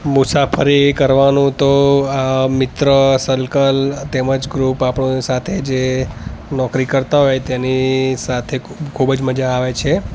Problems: constant background noise, background conversations at intervals